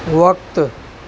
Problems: constant background noise